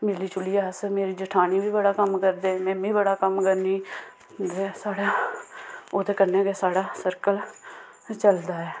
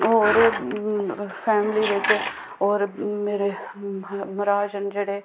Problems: background sounds at intervals